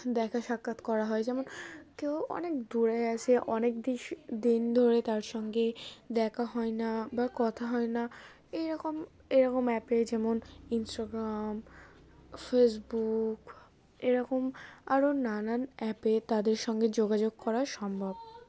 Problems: constant background noise